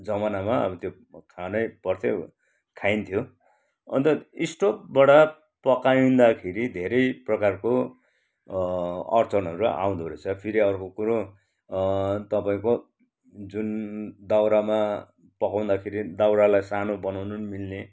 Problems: none marked